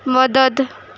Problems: constant background noise